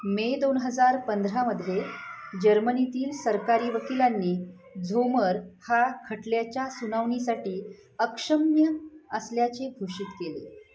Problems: none marked